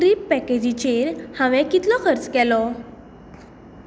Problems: constant background noise